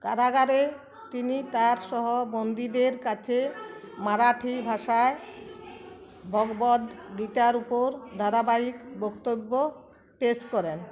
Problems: continuous background conversations